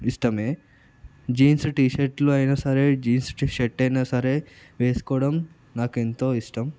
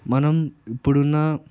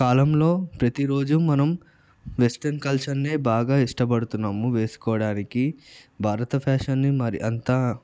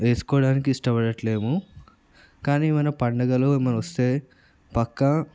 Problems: none marked